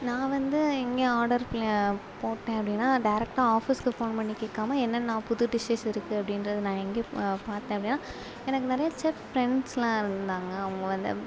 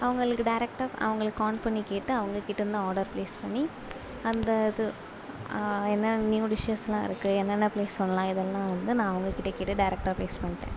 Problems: constant background noise